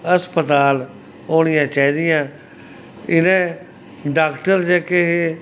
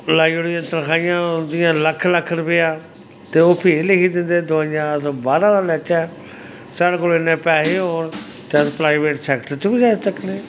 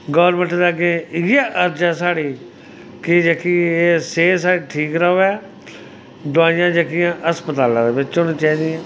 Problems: background sounds at intervals